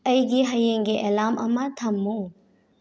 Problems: none marked